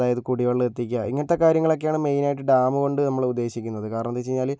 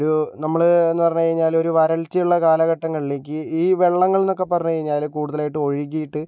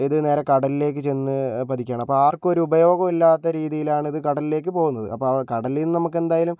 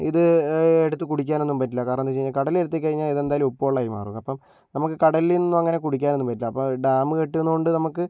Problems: none marked